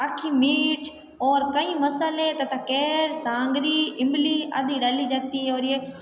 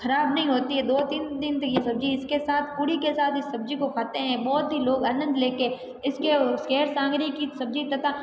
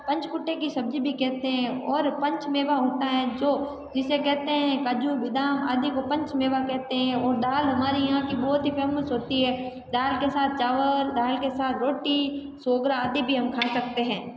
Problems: background conversations at intervals